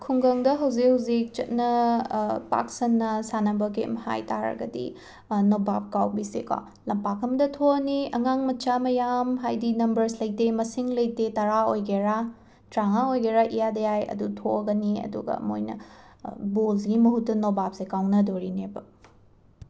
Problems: background sounds at intervals, background conversations at intervals